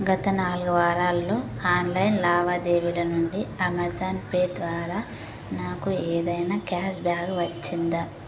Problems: constant background noise